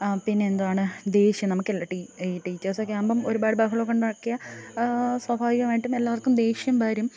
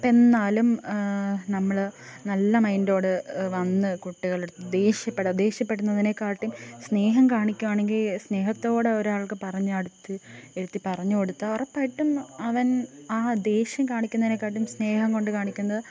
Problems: none marked